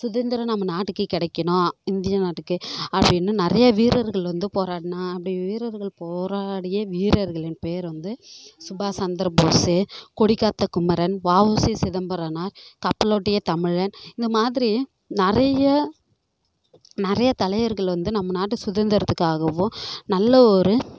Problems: none marked